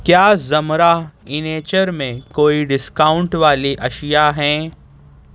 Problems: none marked